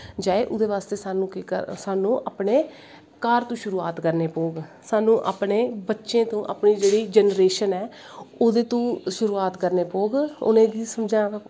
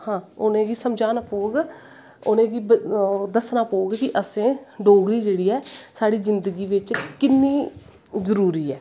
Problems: constant background noise